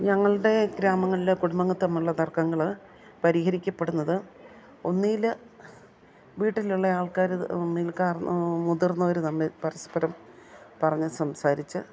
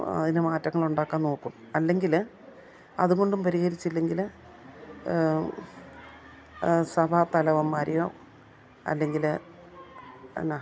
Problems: none marked